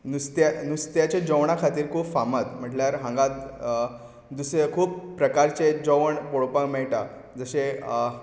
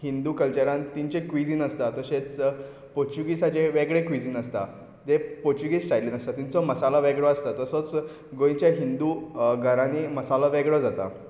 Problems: background sounds at intervals